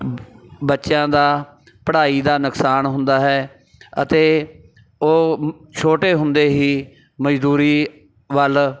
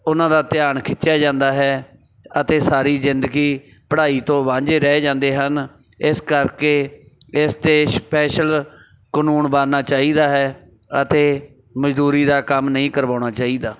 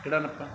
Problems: background sounds at intervals, background conversations at intervals